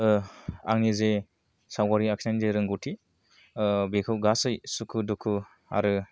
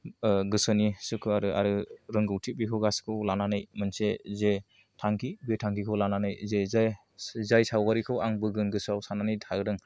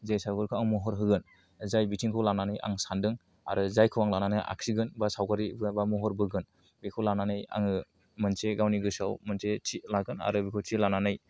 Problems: low volume